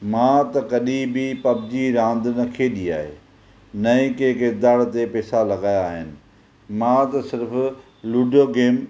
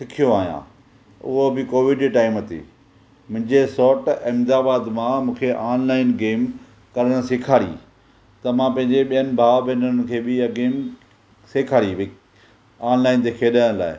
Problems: none marked